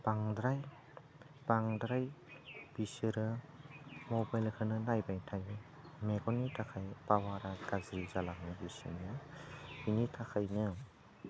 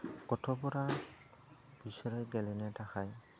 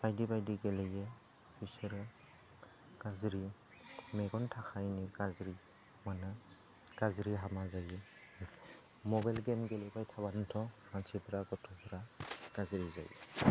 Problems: low volume